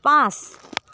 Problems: background sounds at intervals